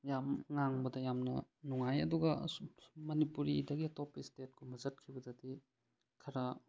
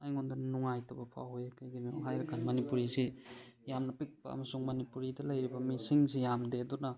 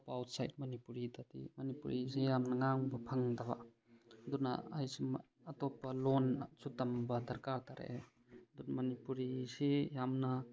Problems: background sounds at intervals